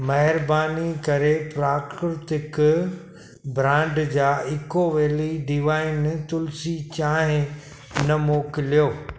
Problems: constant background noise, echo